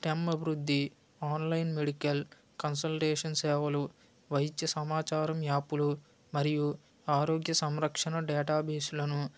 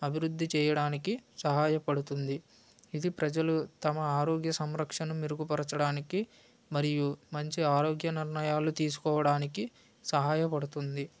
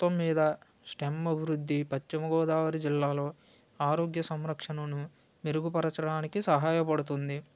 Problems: none marked